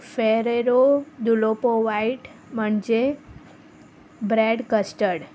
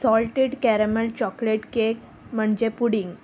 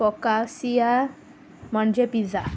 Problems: constant background noise